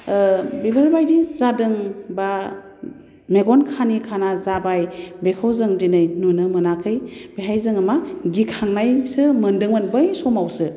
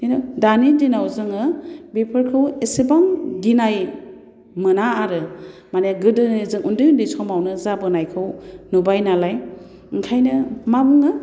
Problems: constant background noise